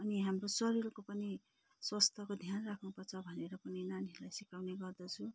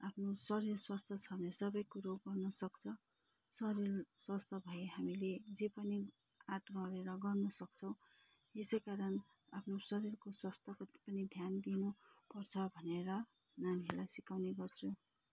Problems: low volume